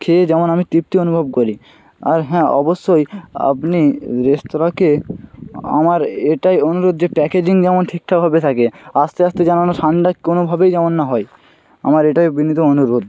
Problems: none marked